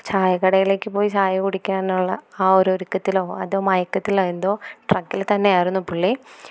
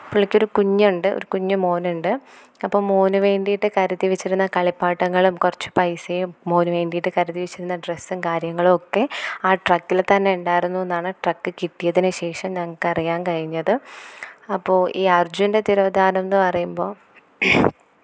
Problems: none marked